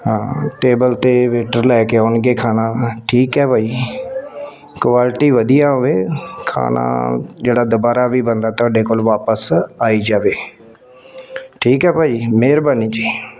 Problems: constant background noise